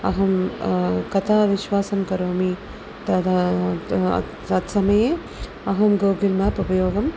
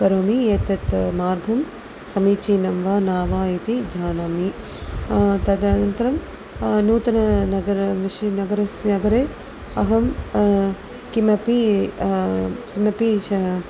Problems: constant background noise